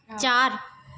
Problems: background sounds at intervals